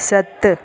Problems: constant background noise, echo